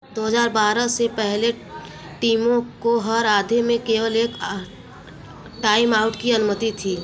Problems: constant background noise